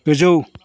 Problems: none marked